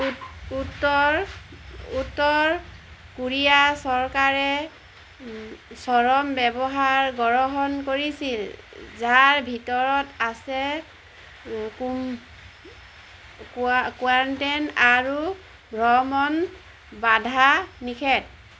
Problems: none marked